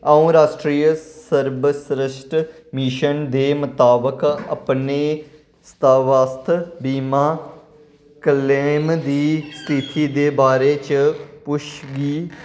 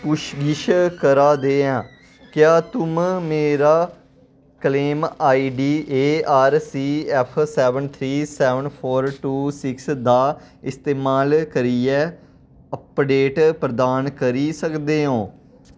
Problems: echo